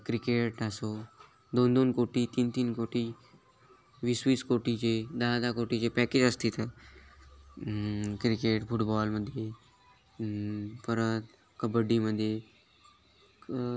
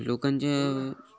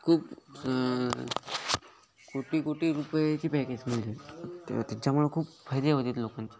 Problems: background sounds at intervals, continuous background conversations